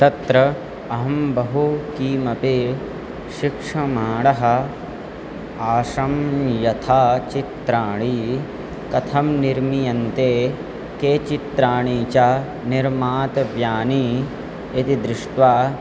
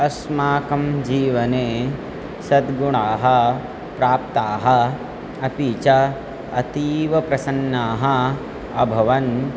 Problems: constant background noise